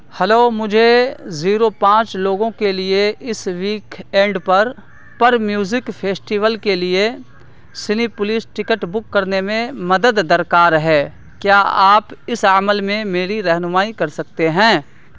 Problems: constant background noise